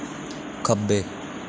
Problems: constant background noise